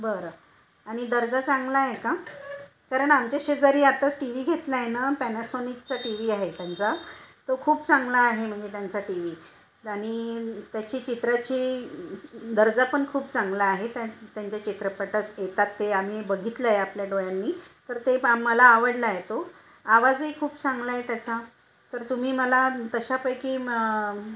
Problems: constant background noise